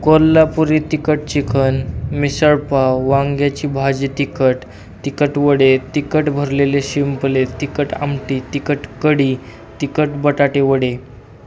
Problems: none marked